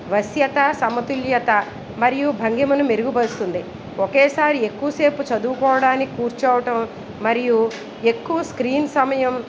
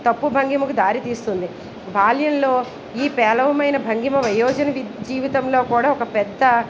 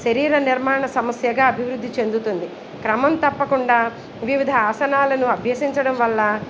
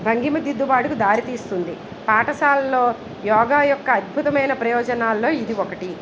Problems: background sounds at intervals